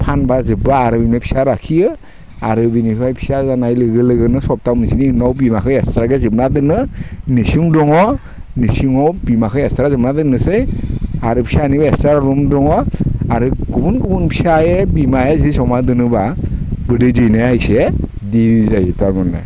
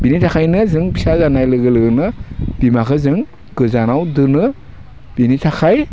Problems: constant background noise